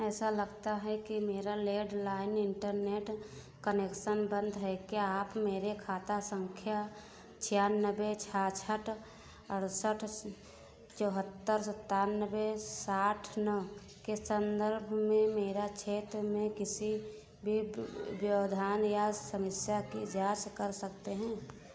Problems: constant background noise